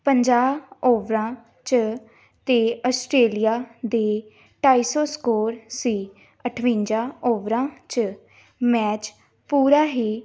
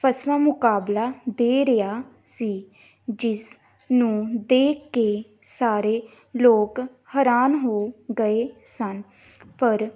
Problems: background sounds at intervals, background conversations at intervals